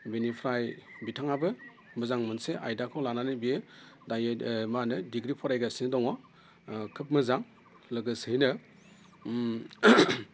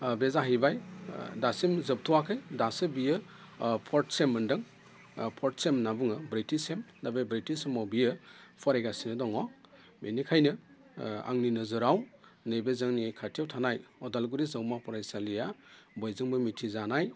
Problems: constant background noise